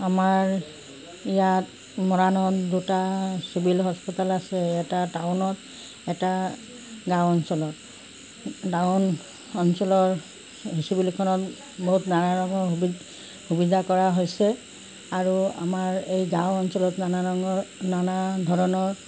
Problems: constant background noise